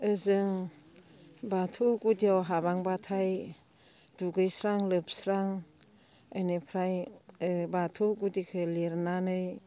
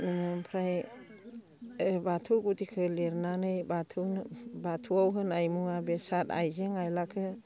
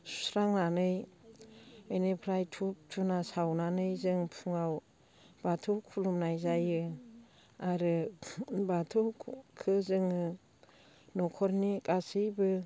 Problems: low volume